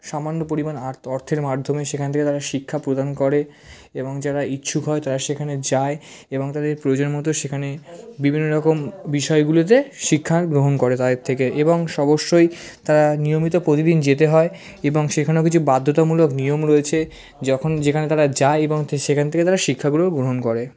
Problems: background conversations at intervals